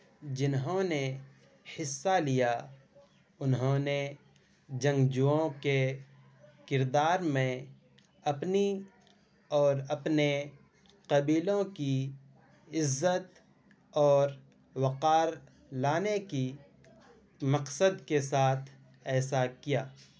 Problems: constant background noise